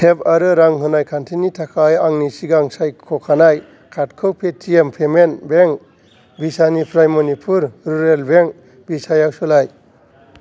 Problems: background sounds at intervals